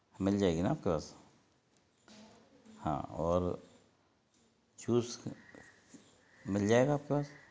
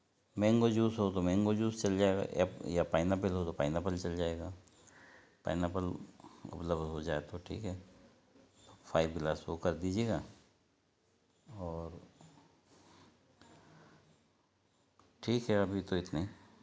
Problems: background sounds at intervals